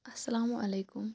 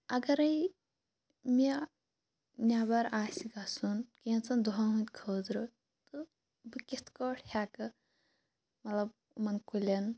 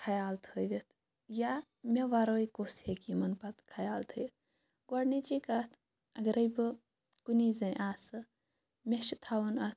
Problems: none marked